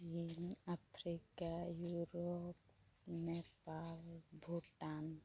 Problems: low volume